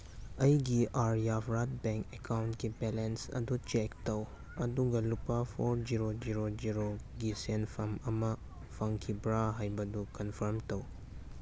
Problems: background sounds at intervals, background conversations at intervals